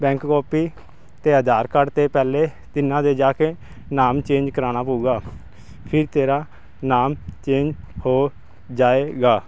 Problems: none marked